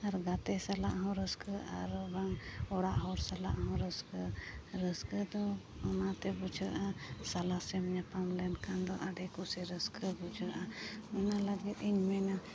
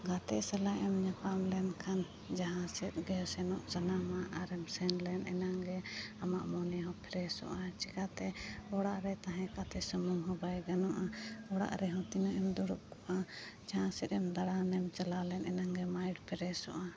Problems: none marked